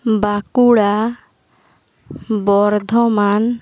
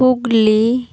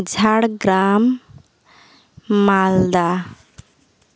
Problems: none marked